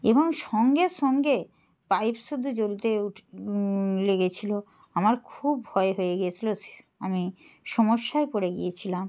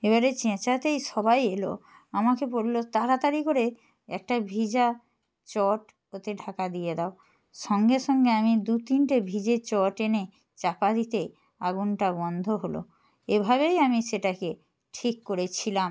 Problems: constant background noise